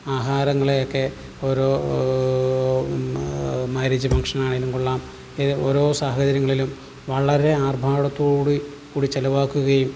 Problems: background sounds at intervals